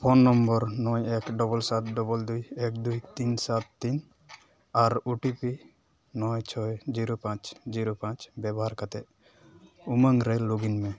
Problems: background sounds at intervals